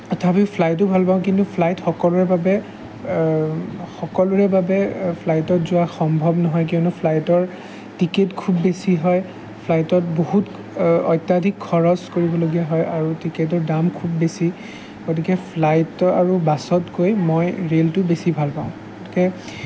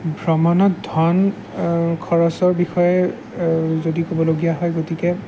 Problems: background sounds at intervals